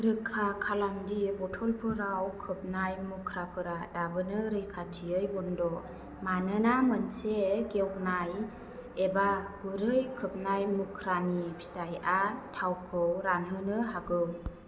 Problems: none marked